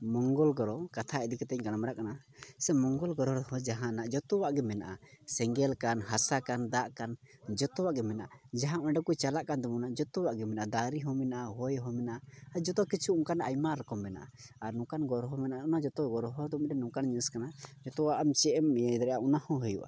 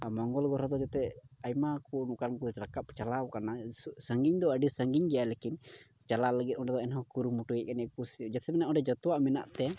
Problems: low volume